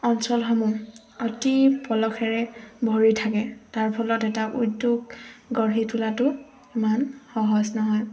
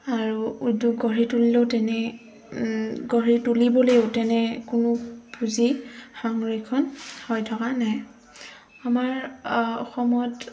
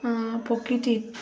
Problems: constant background noise, background conversations at intervals